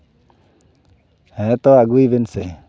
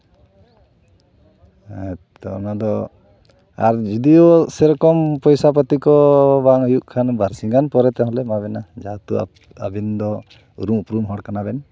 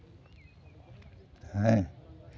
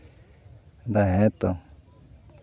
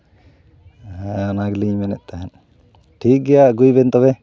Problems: background sounds at intervals